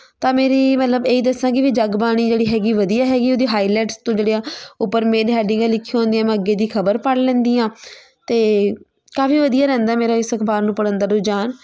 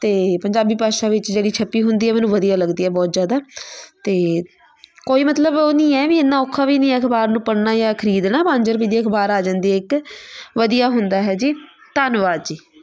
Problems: background sounds at intervals, continuous background conversations